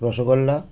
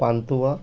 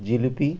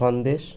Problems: none marked